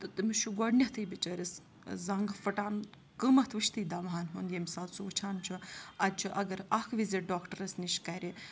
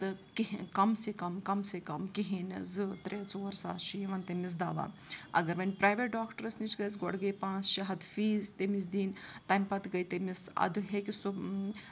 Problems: continuous background conversations